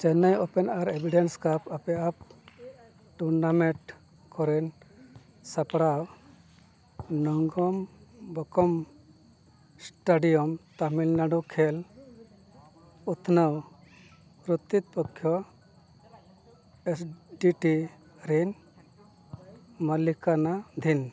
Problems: none marked